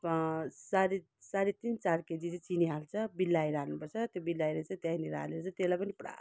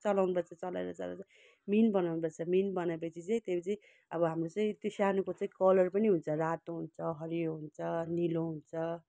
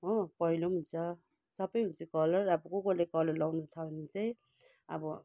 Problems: none marked